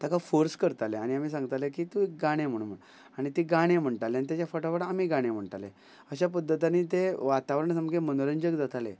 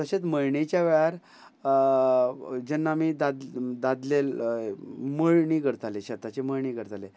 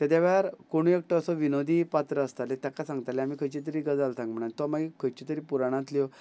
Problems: background conversations at intervals